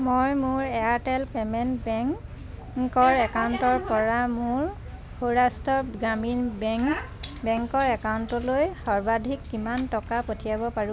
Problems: none marked